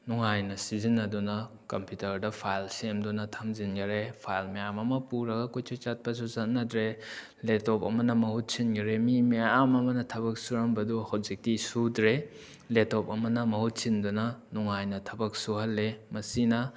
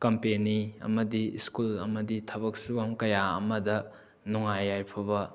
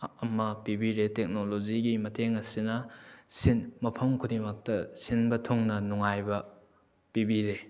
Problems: background sounds at intervals